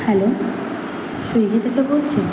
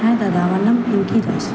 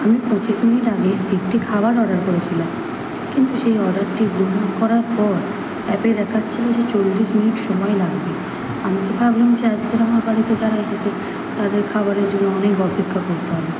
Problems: constant background noise